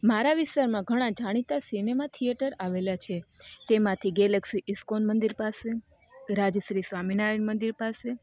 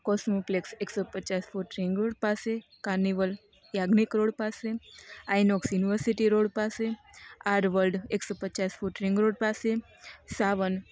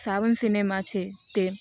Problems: none marked